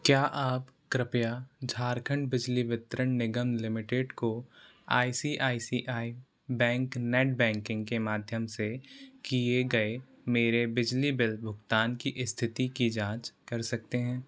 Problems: constant background noise